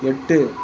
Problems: constant background noise